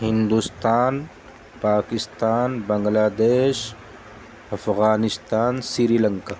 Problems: constant background noise